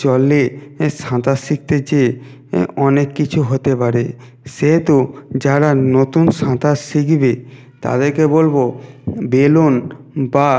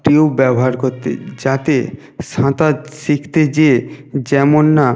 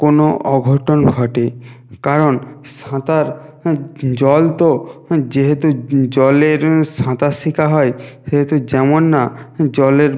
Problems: background sounds at intervals